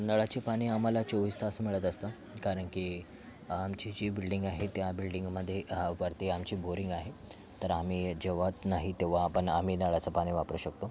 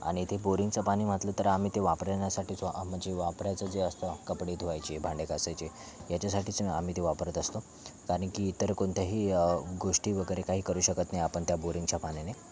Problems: background sounds at intervals, background conversations at intervals